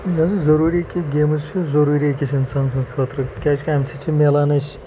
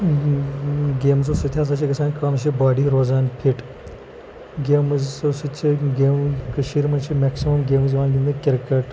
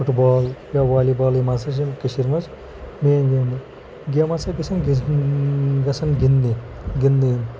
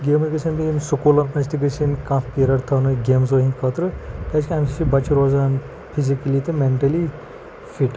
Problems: constant background noise, low volume